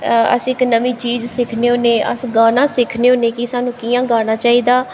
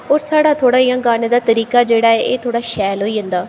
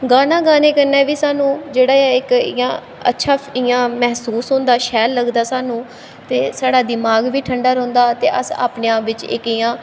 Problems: echo